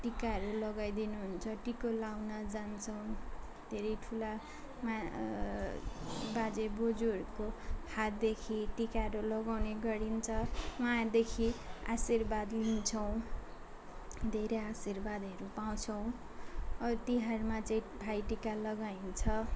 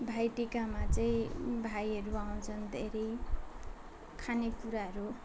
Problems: constant background noise, continuous background conversations